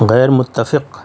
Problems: none marked